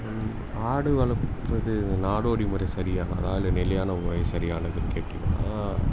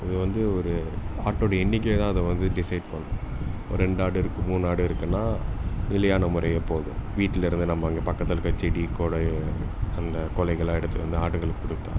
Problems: constant background noise